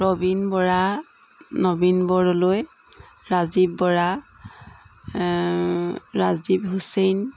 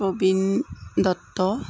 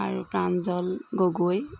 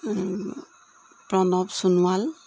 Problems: constant background noise